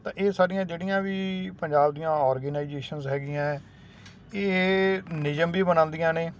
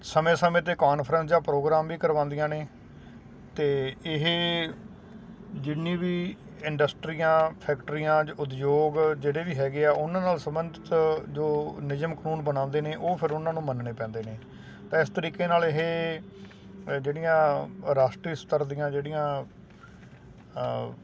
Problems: none marked